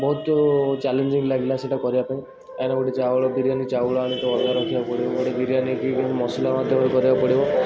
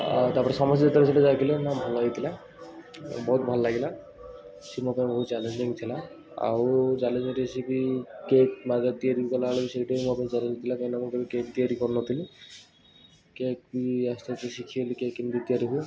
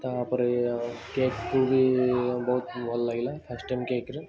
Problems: constant background noise